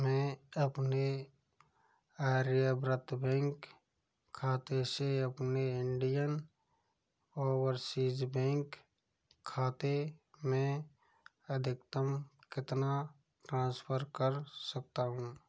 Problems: low volume